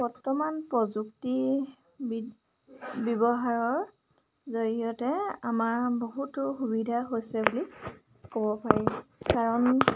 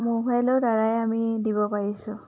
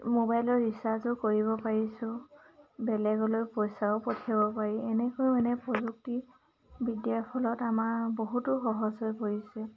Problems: none marked